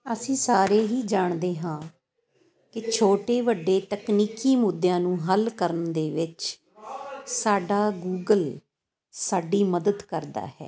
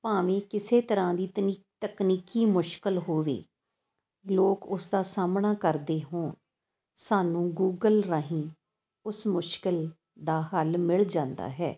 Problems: constant background noise